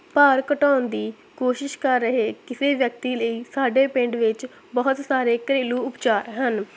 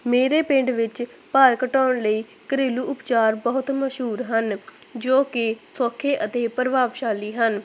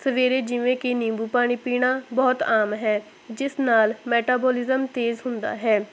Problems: none marked